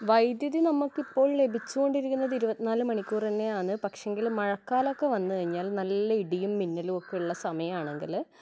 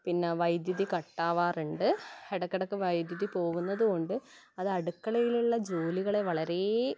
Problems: background sounds at intervals